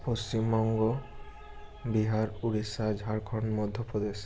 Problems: constant background noise